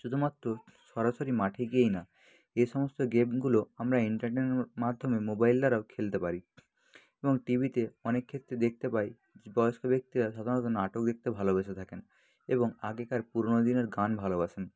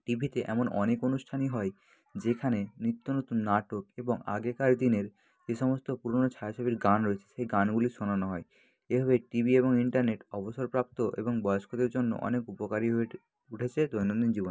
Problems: background sounds at intervals